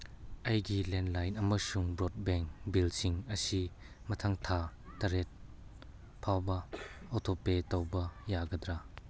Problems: background sounds at intervals